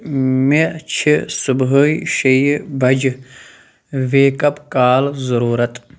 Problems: none marked